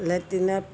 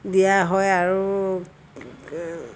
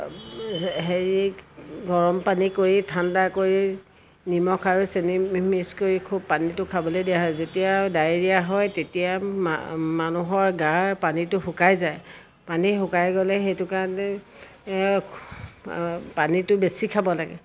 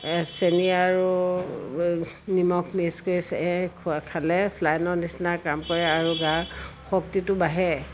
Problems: constant background noise